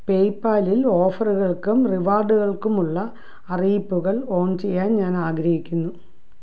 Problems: low volume